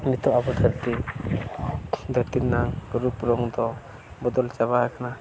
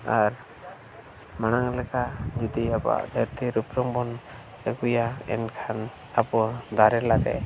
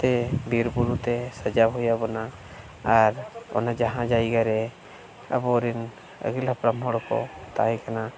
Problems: background sounds at intervals